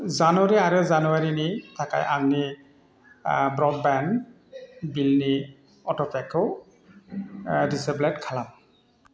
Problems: constant background noise